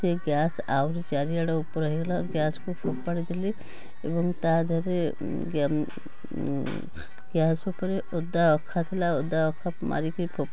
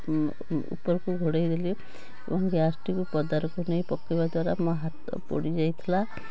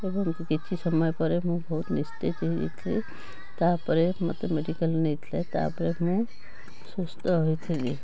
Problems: constant background noise